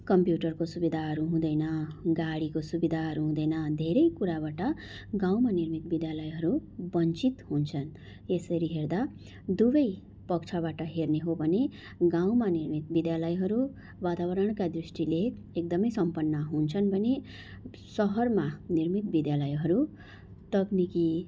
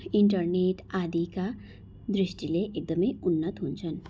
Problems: constant background noise